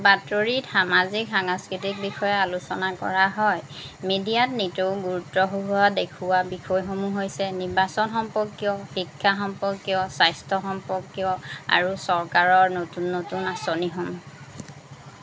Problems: background sounds at intervals